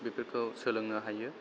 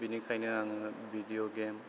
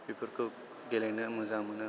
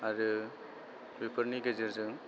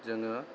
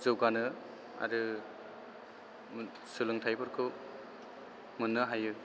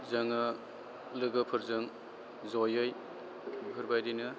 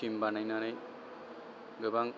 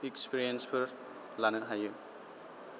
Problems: constant background noise